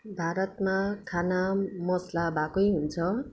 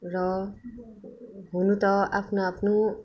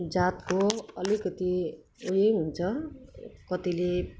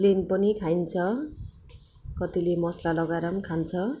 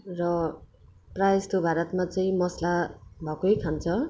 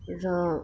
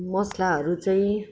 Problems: none marked